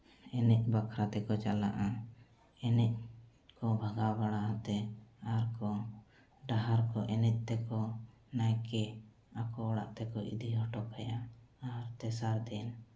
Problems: background sounds at intervals, low volume